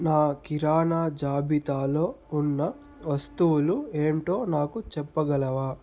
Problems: none marked